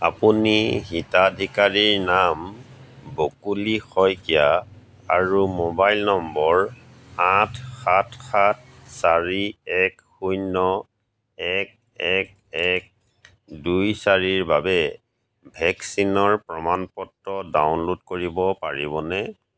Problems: none marked